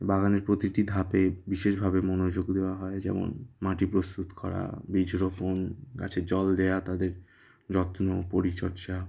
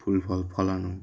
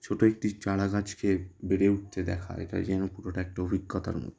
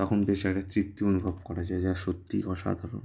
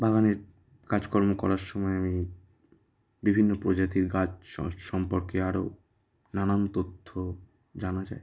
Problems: none marked